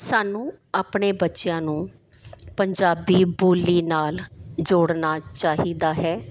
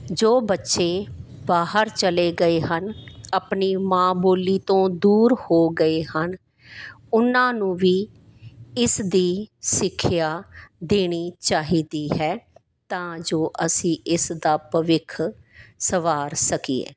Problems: background sounds at intervals